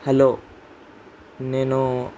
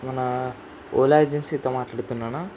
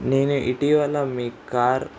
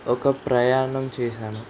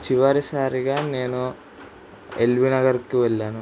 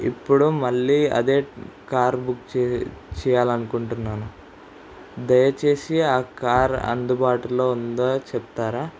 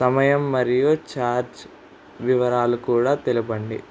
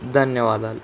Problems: constant background noise